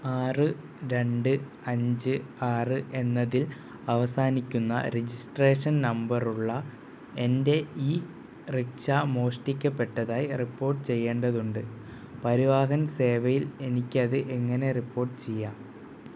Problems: none marked